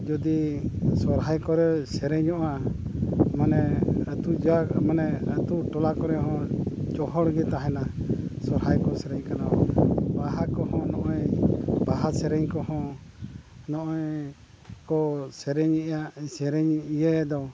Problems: background sounds at intervals